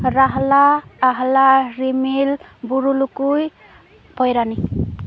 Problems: constant background noise, continuous background conversations